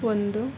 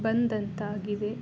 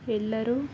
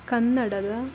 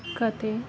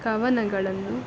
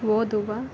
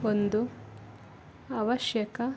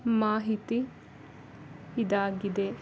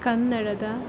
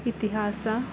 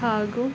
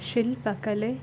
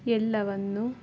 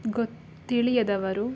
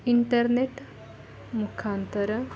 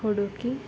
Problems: background sounds at intervals